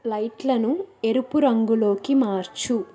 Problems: continuous background conversations